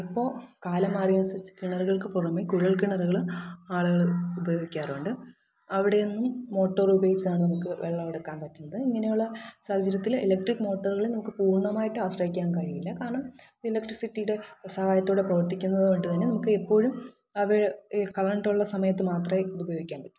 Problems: background sounds at intervals, echo